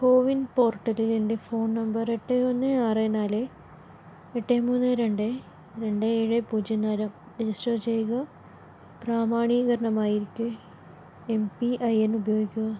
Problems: none marked